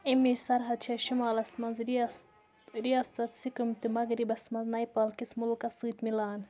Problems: background conversations at intervals, low volume